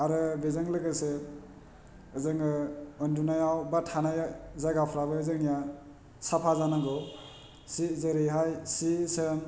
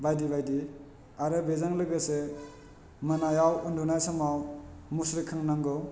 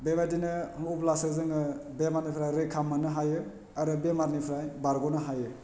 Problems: low volume